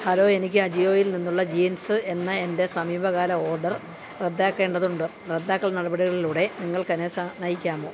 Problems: none marked